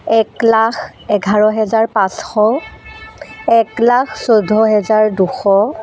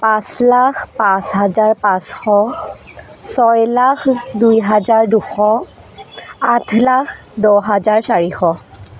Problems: constant background noise